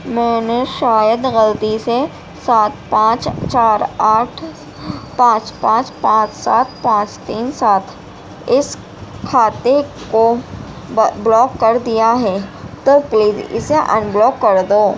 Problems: constant background noise